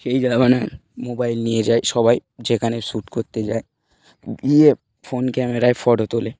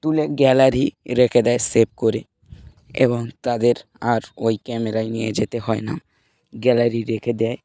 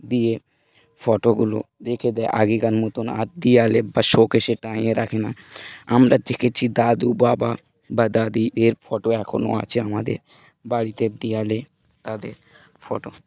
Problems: none marked